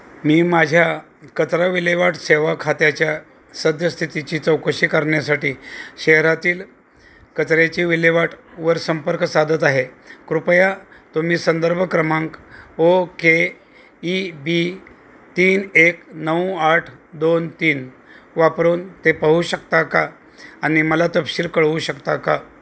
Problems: none marked